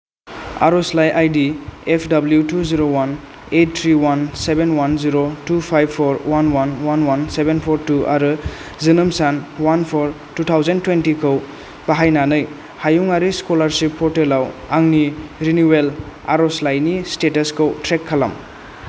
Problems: constant background noise